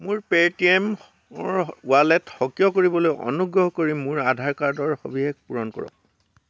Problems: constant background noise